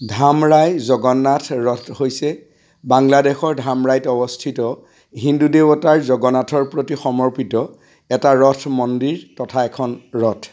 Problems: constant background noise